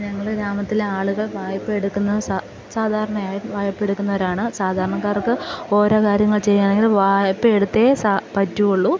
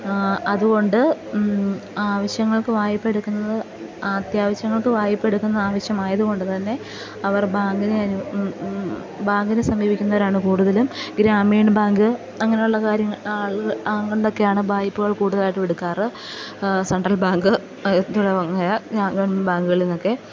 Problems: background sounds at intervals, low volume